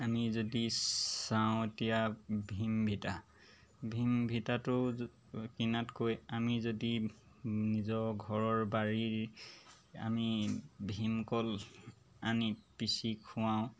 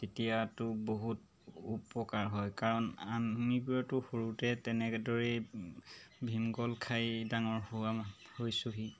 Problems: background sounds at intervals